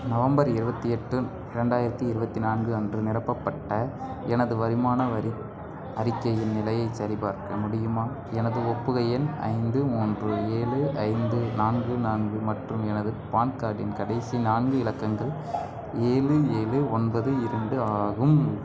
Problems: background sounds at intervals, background conversations at intervals, low volume